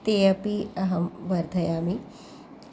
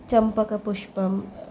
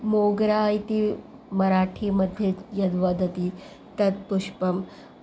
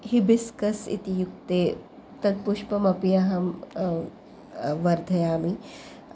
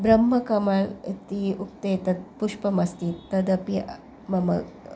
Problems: background sounds at intervals